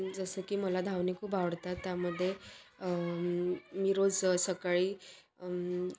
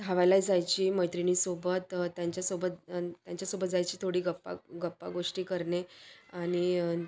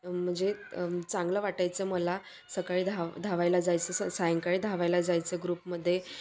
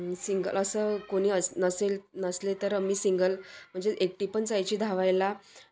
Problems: none marked